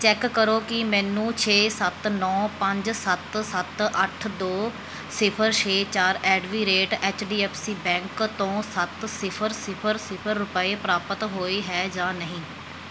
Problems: background sounds at intervals